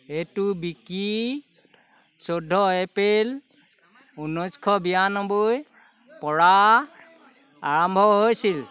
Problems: constant background noise, continuous background conversations